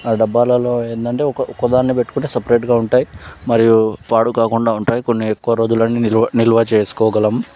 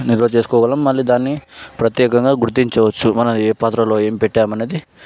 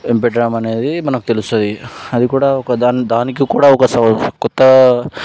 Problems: background sounds at intervals